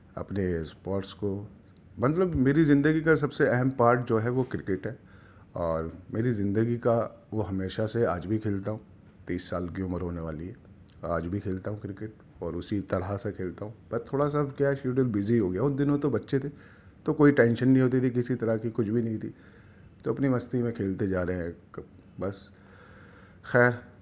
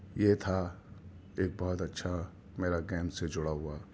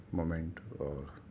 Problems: none marked